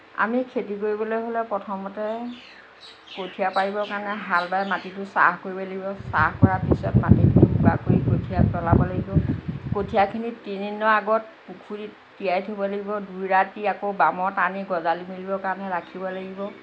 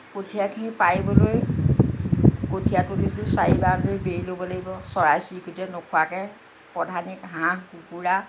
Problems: constant background noise